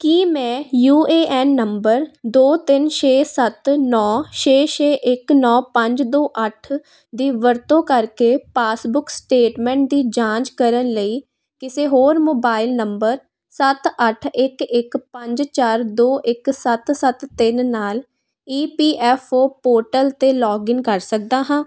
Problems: none marked